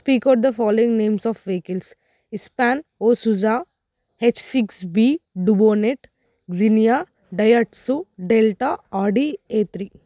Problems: none marked